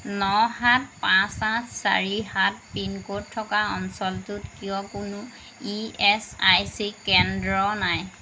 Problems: constant background noise